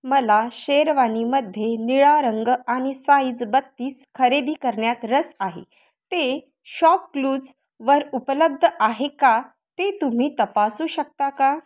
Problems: constant background noise